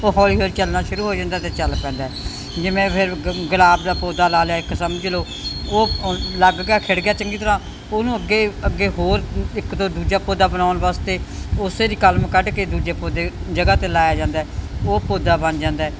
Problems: constant background noise